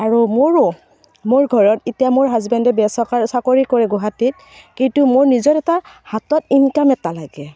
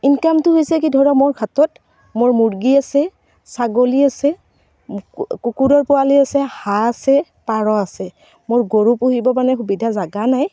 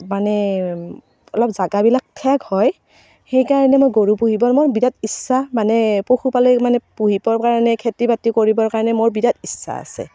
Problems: none marked